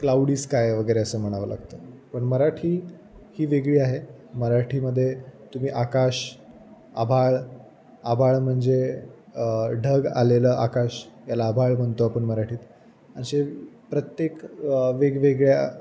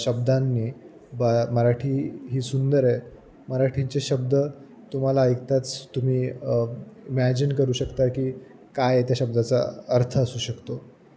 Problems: none marked